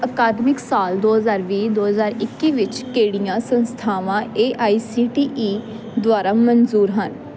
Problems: constant background noise